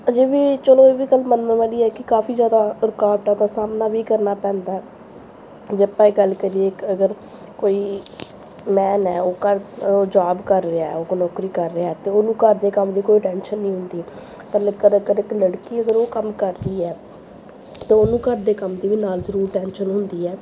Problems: background sounds at intervals